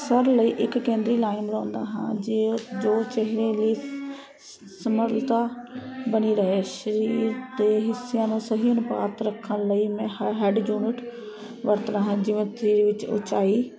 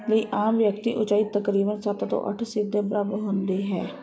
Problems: constant background noise